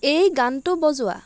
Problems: constant background noise, background conversations at intervals